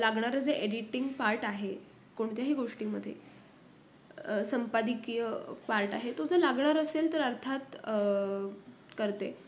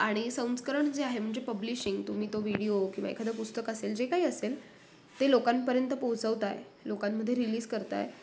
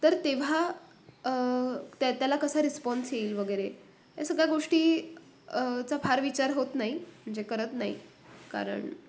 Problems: none marked